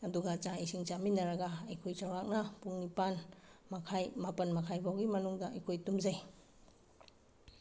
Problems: background sounds at intervals